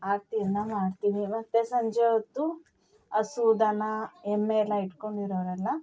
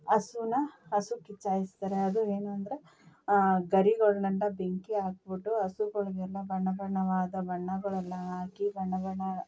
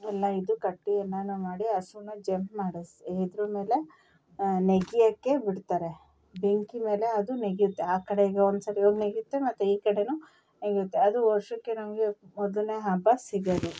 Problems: background sounds at intervals